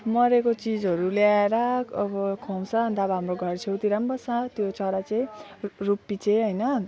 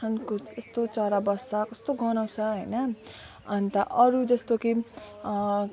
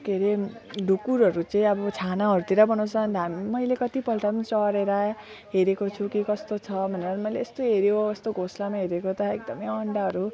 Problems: none marked